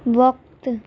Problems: none marked